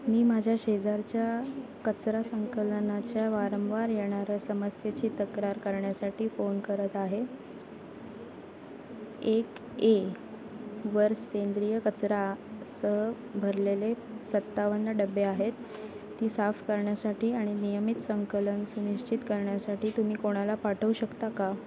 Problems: constant background noise, background conversations at intervals